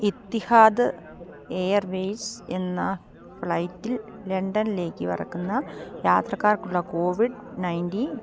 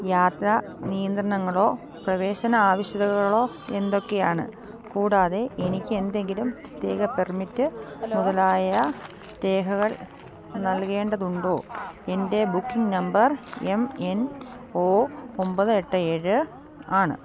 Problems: none marked